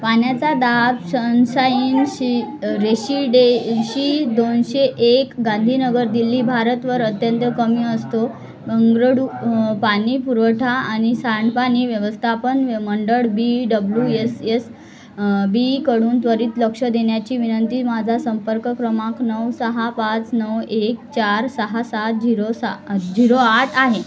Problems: constant background noise, continuous background conversations